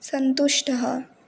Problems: none marked